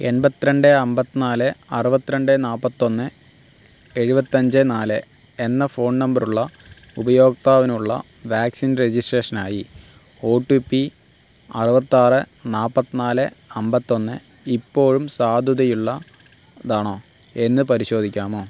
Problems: constant background noise